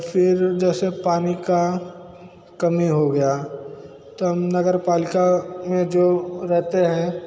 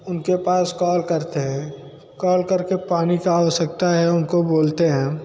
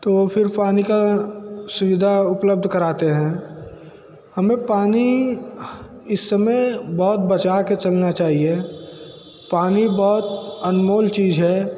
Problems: constant background noise